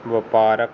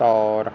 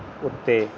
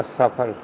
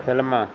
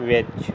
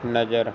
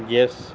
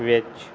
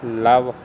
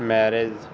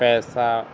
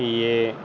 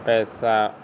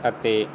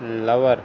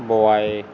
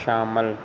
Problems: constant background noise